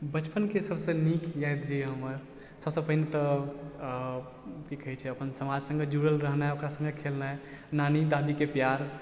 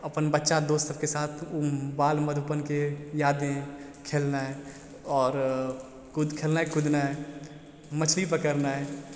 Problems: constant background noise